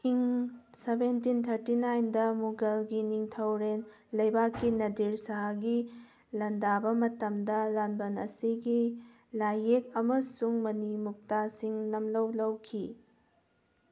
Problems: background sounds at intervals